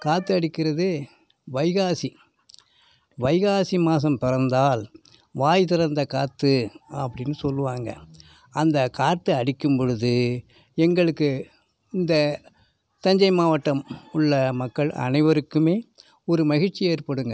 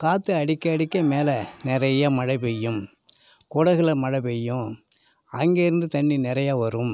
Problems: background sounds at intervals